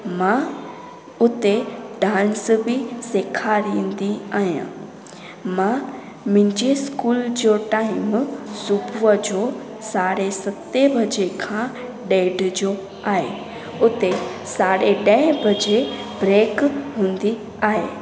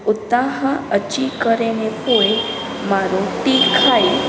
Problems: constant background noise, echo